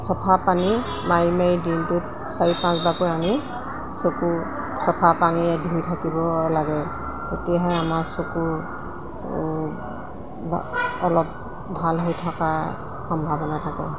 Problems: background sounds at intervals